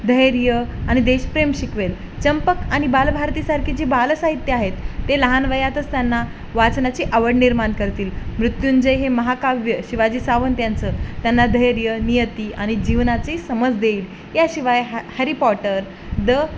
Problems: none marked